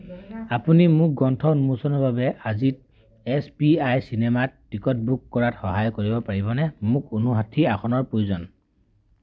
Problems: none marked